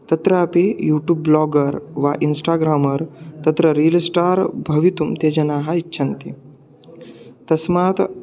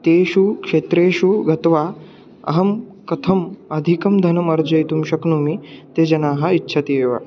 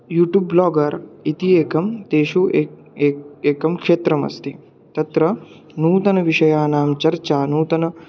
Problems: constant background noise